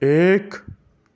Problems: none marked